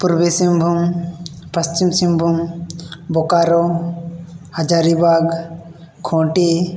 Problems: none marked